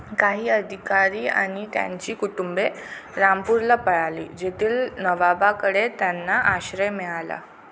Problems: constant background noise